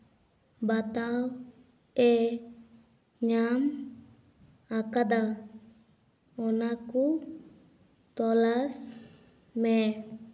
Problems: background sounds at intervals